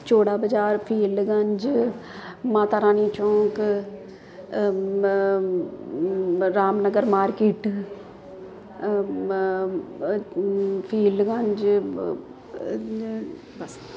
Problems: constant background noise